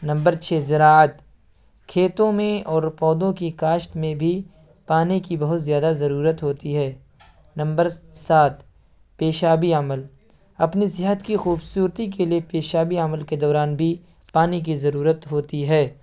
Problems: none marked